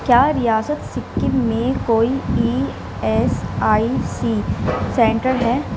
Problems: none marked